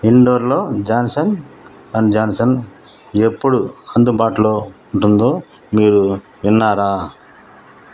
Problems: none marked